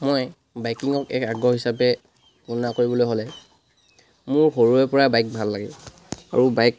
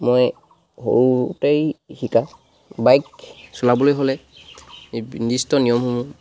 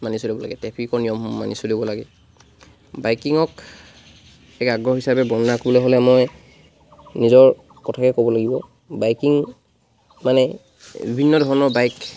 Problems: background sounds at intervals